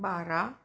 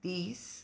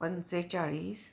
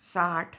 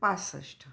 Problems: none marked